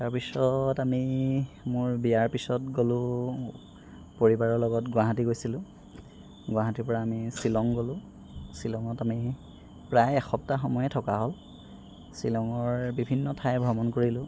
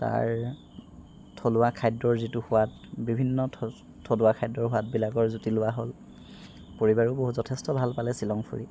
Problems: background sounds at intervals